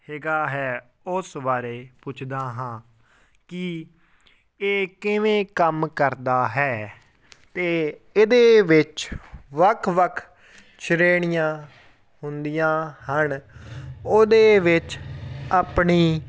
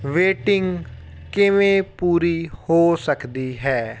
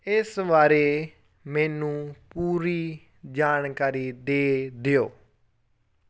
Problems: background conversations at intervals